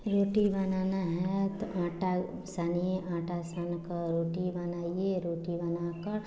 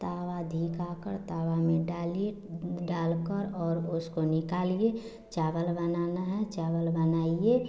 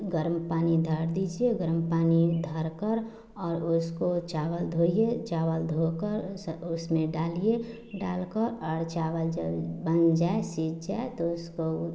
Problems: constant background noise